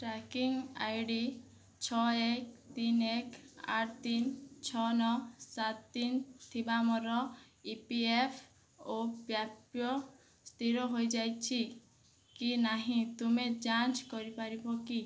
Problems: low volume